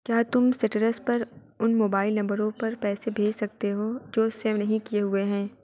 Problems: none marked